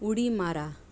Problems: constant background noise